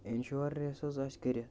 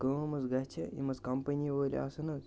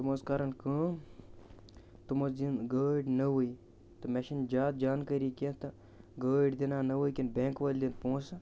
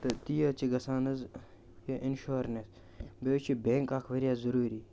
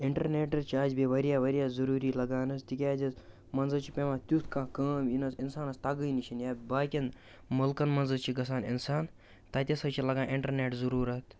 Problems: constant background noise